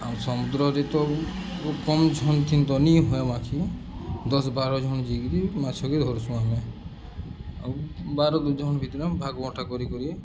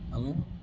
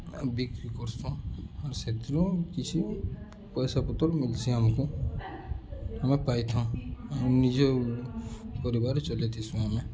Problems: constant background noise, continuous background conversations